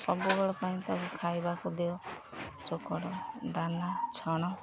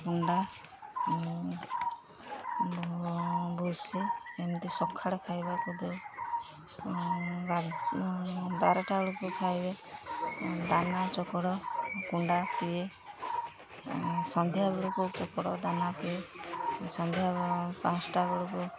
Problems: constant background noise